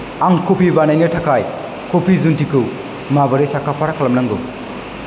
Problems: constant background noise